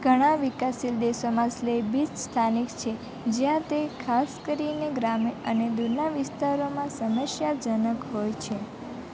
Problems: constant background noise